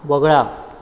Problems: background sounds at intervals